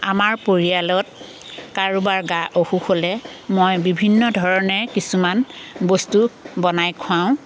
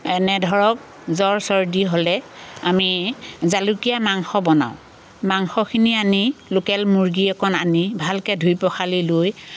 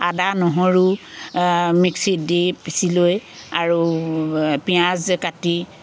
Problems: constant background noise